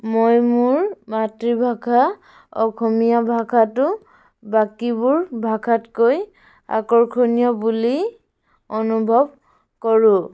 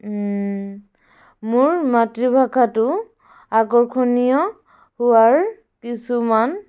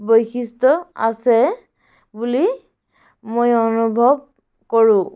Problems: background sounds at intervals